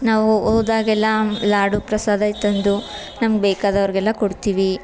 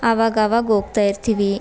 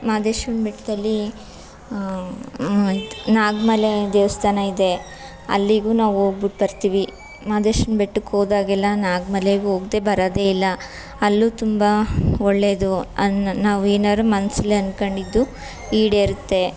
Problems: background conversations at intervals